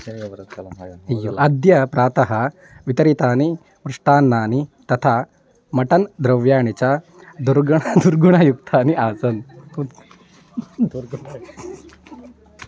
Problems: background conversations at intervals